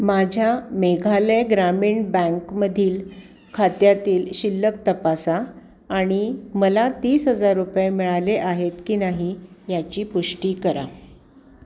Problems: constant background noise, background conversations at intervals